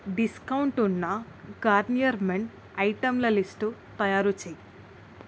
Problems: constant background noise